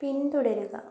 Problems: none marked